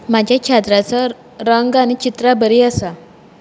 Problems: background sounds at intervals